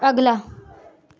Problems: background sounds at intervals